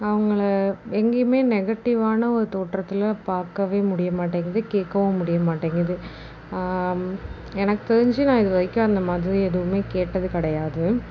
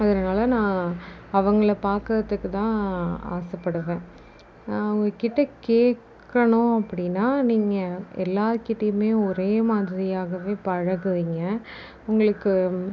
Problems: none marked